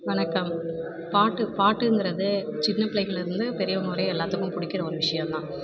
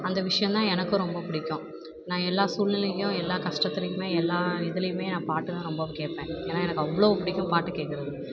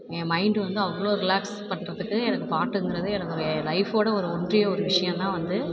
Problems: background sounds at intervals